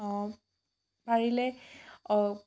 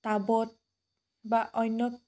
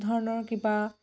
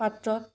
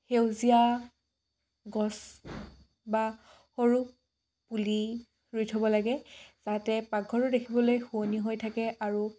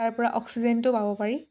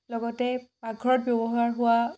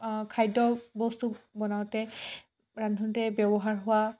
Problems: none marked